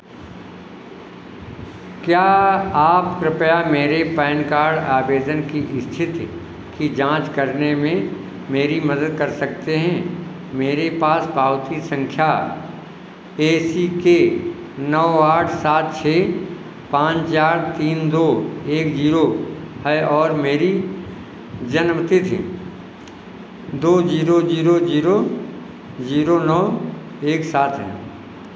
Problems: constant background noise